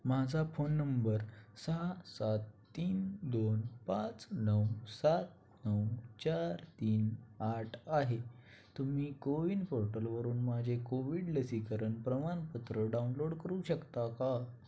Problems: constant background noise